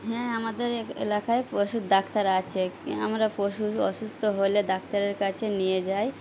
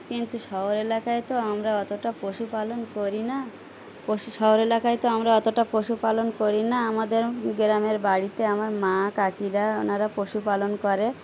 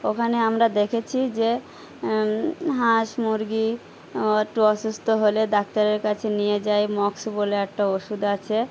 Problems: background sounds at intervals